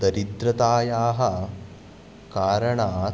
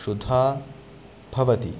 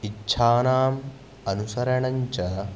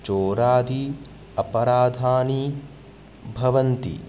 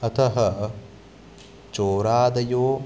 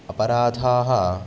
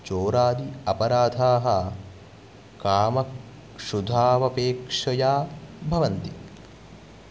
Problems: none marked